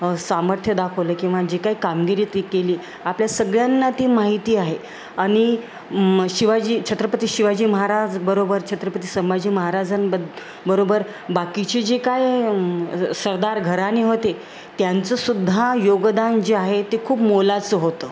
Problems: constant background noise